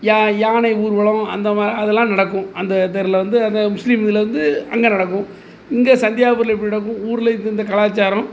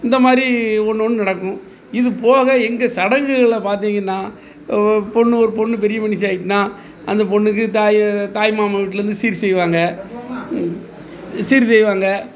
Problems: background sounds at intervals